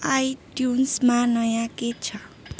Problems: background sounds at intervals